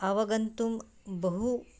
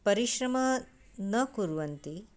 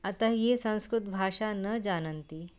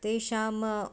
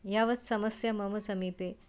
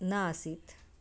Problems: background sounds at intervals